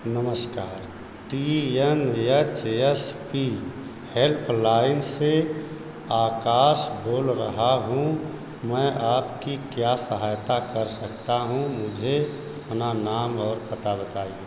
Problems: constant background noise